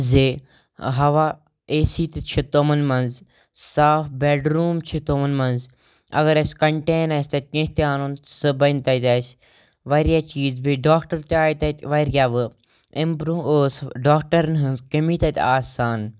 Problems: none marked